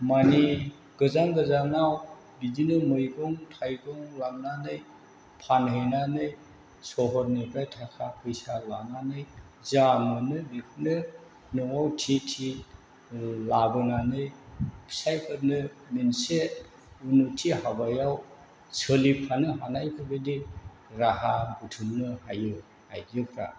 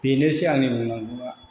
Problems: none marked